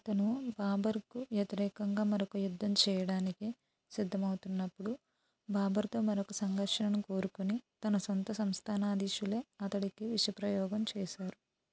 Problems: low volume